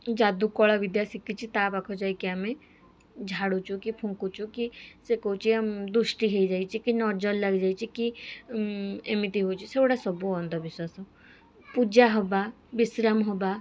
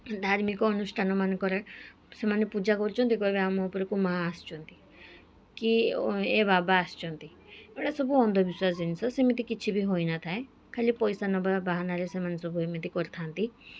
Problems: background sounds at intervals, background conversations at intervals